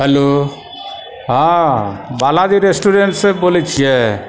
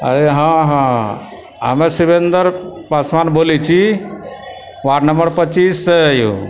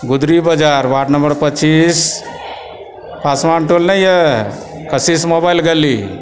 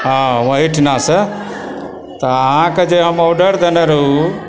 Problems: continuous background conversations